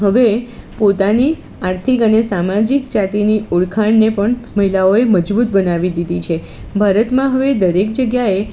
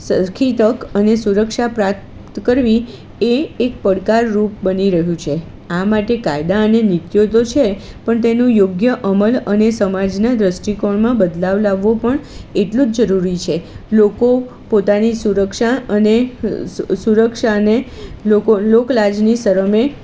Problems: constant background noise